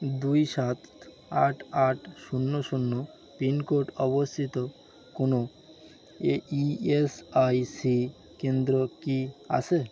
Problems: constant background noise